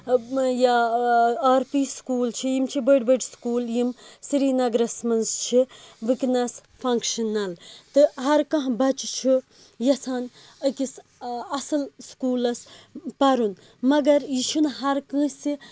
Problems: background sounds at intervals